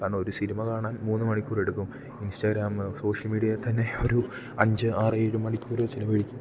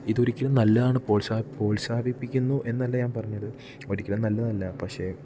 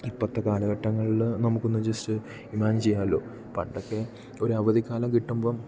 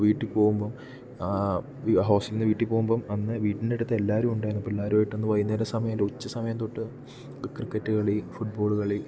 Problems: low volume